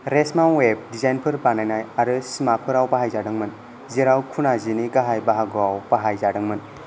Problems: constant background noise